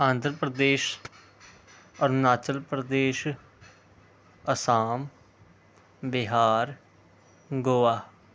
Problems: none marked